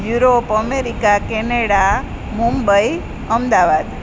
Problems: constant background noise